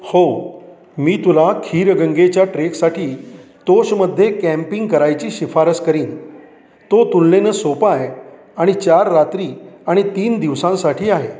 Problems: constant background noise, background conversations at intervals